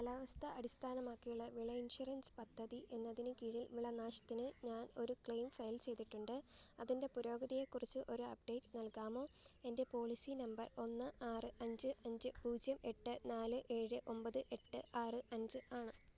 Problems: background sounds at intervals, low volume